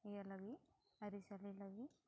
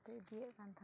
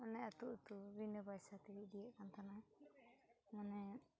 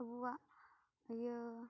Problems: low volume